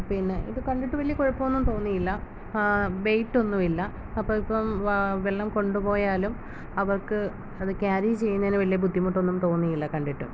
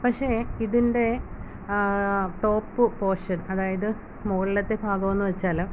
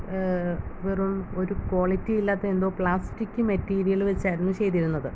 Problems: none marked